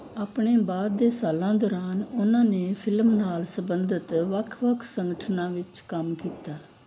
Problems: background sounds at intervals